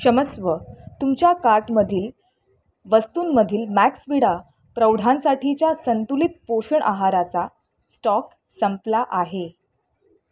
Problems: constant background noise